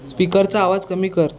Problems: background sounds at intervals, background conversations at intervals